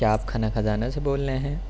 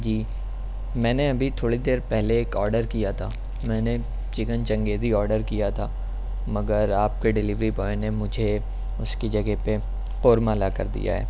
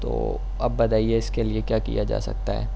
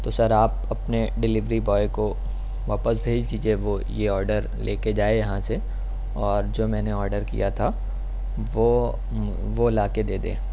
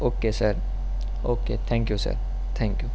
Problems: none marked